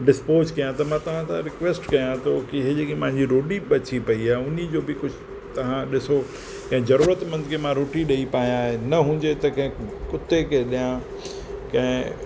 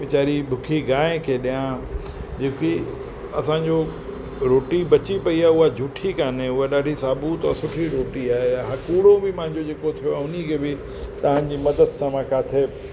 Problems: constant background noise